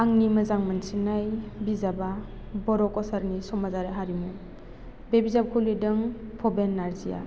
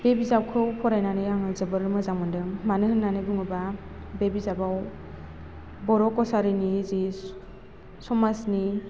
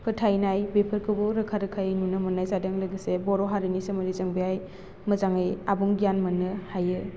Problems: none marked